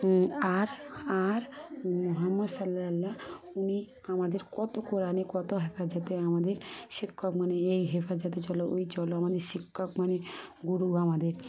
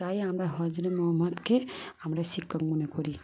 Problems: constant background noise